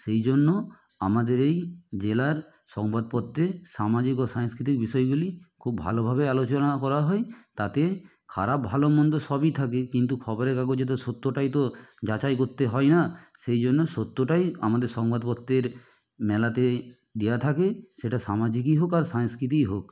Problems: none marked